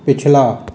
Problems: constant background noise, echo